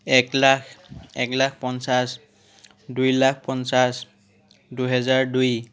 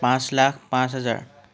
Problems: background conversations at intervals